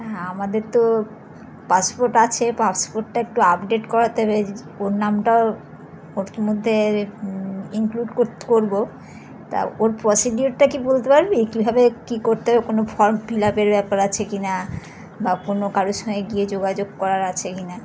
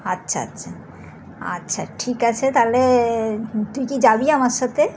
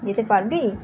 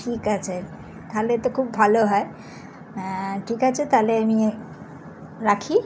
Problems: background sounds at intervals